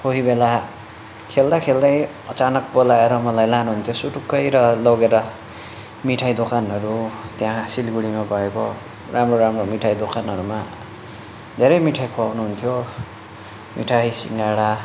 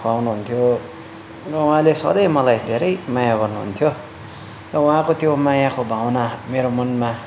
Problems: none marked